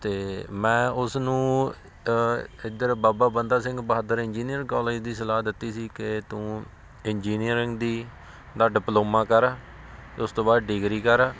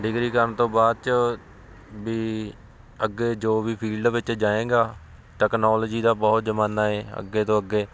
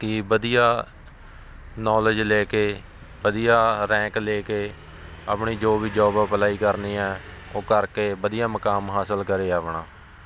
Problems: constant background noise